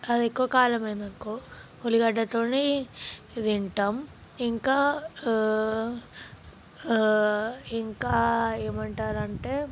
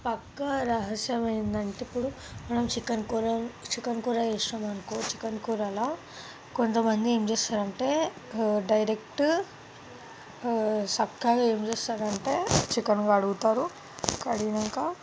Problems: background sounds at intervals